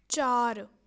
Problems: none marked